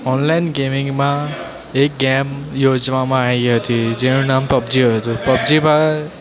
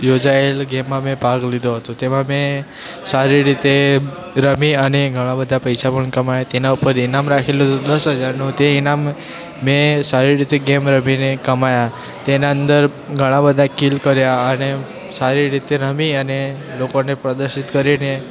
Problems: constant background noise, continuous background conversations